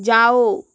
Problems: constant background noise